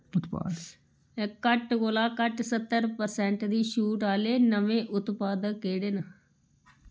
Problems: background sounds at intervals